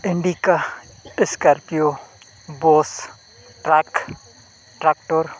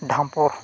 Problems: constant background noise, continuous background conversations